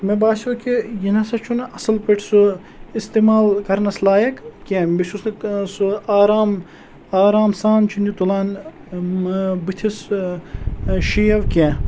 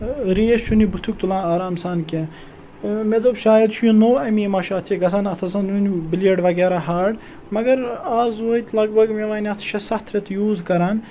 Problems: none marked